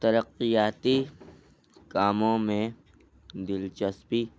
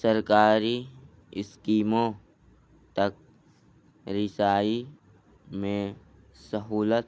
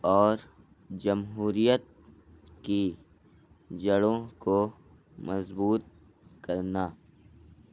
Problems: low volume